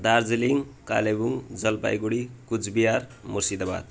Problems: background sounds at intervals